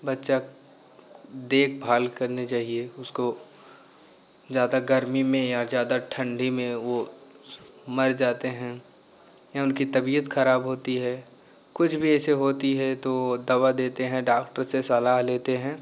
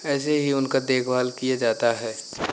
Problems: none marked